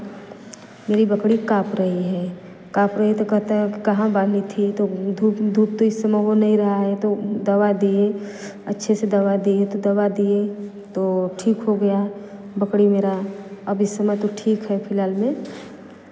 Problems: constant background noise